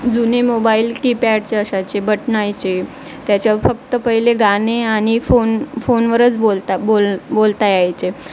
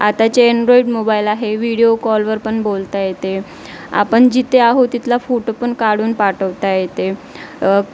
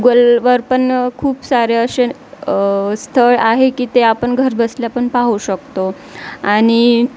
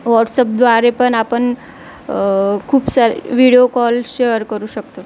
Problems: none marked